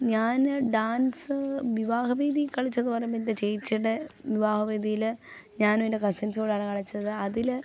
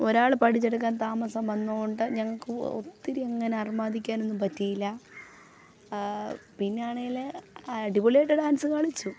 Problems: background sounds at intervals, low volume